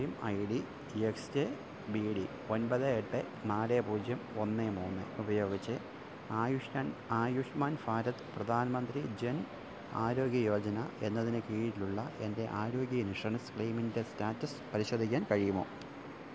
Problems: none marked